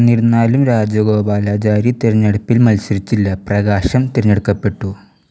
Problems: background sounds at intervals